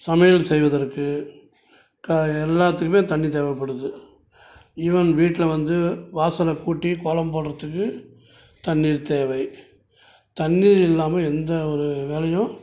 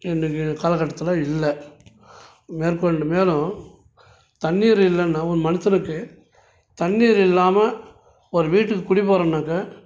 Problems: none marked